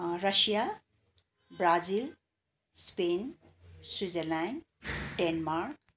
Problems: constant background noise